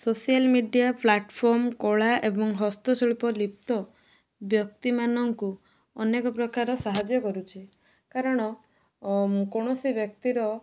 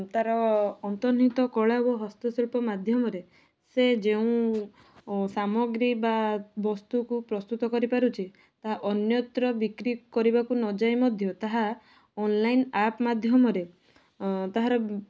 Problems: none marked